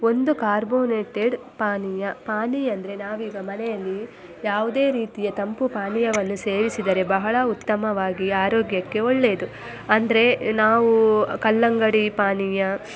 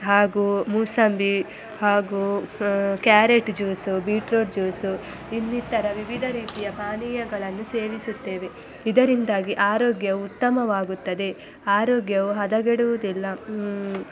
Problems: constant background noise, background conversations at intervals